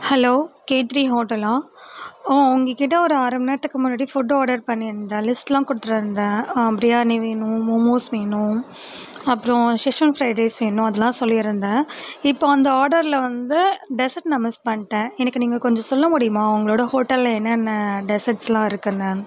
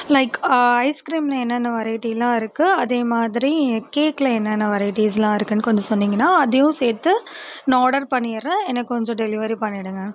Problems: constant background noise